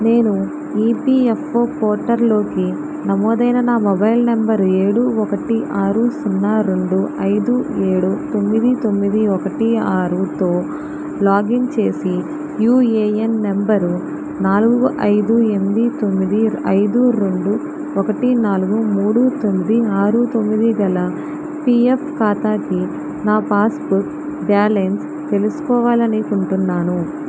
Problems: constant background noise